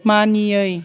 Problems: none marked